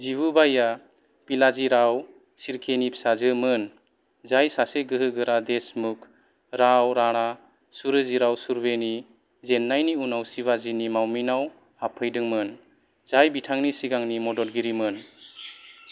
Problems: background sounds at intervals